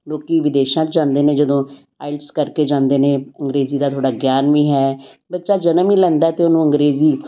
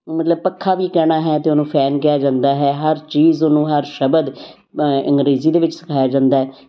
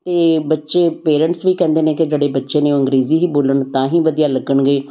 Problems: background sounds at intervals